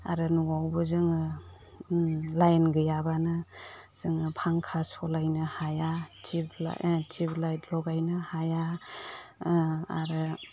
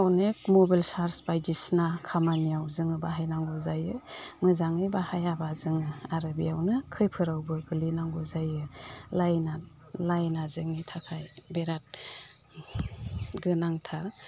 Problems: none marked